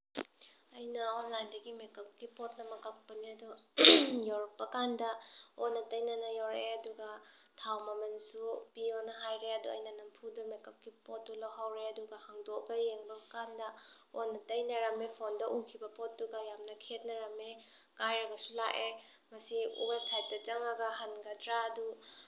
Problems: background sounds at intervals